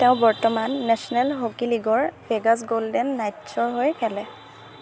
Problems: none marked